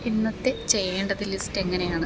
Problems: background sounds at intervals